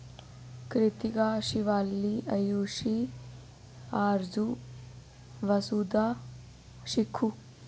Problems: echo